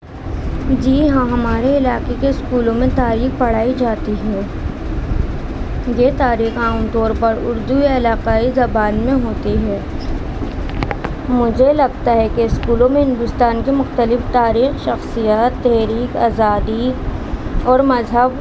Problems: constant background noise